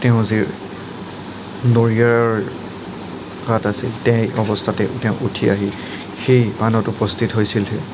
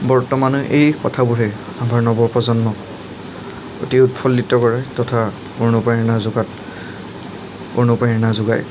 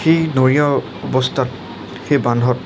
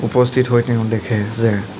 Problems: none marked